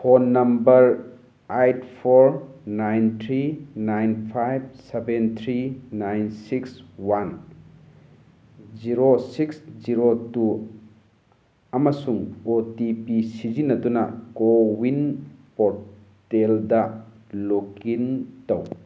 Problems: none marked